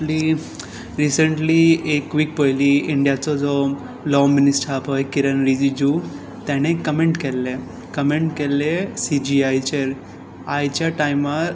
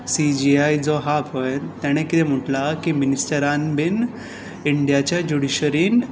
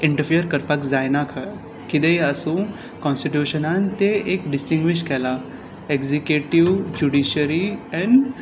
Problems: constant background noise, background conversations at intervals